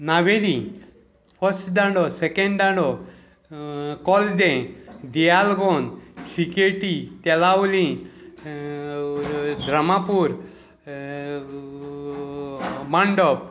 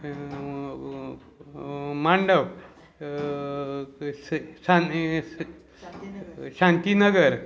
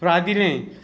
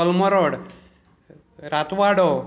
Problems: constant background noise